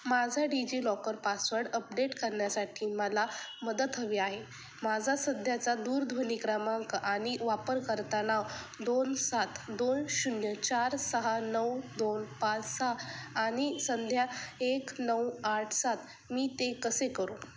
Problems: background sounds at intervals